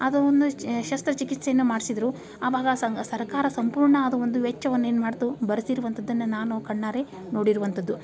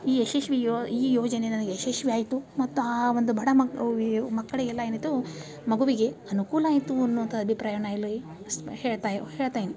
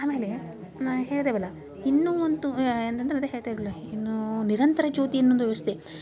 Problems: none marked